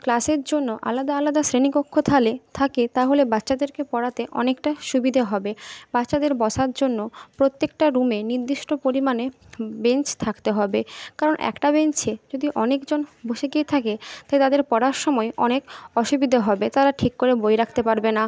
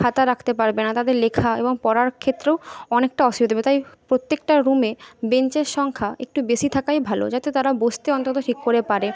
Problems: background conversations at intervals